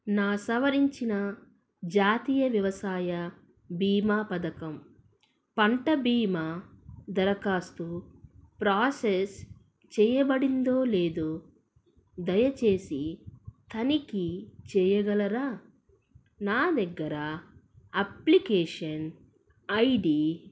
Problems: none marked